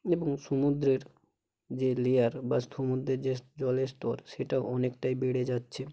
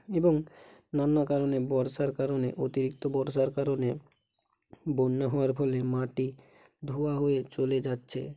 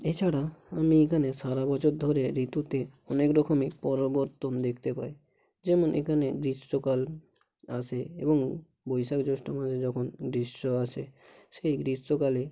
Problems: constant background noise, low volume